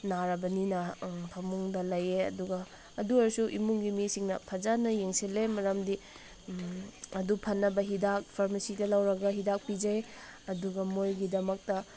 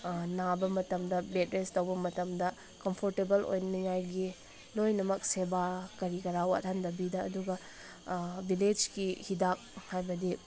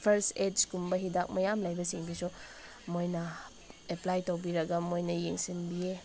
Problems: constant background noise